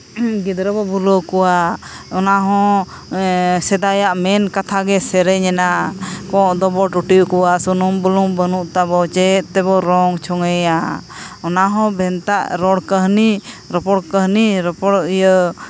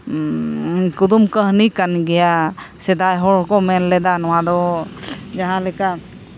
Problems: none marked